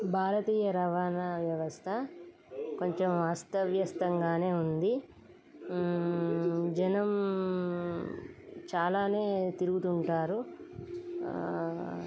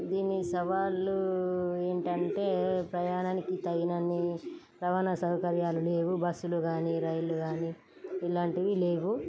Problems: constant background noise